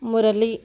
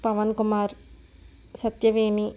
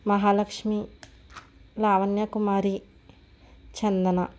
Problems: none marked